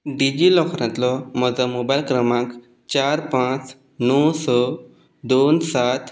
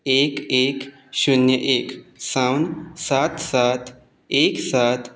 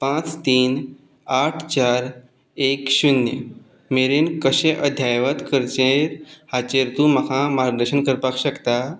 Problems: background sounds at intervals